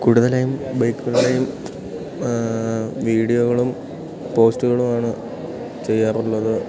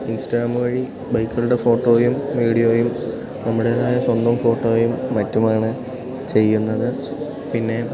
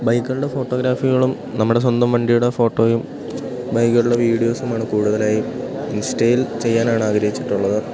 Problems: background sounds at intervals